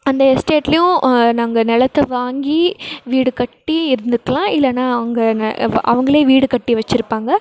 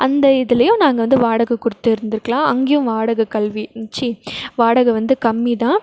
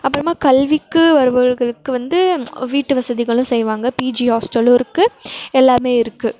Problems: background sounds at intervals